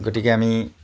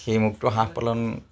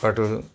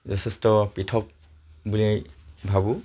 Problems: constant background noise